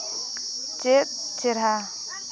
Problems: background sounds at intervals, continuous background conversations